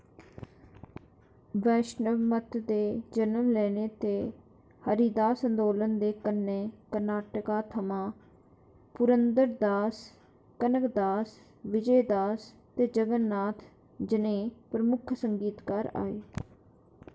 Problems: none marked